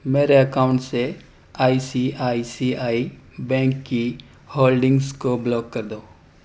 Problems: none marked